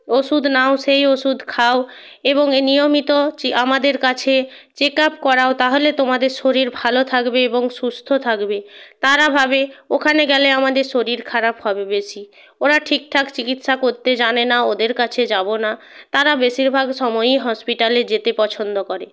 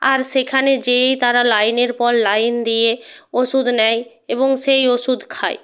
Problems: constant background noise